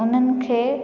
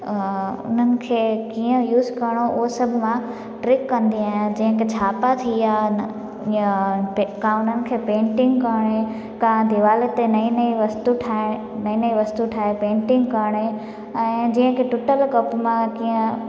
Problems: constant background noise, echo